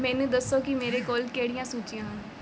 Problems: background sounds at intervals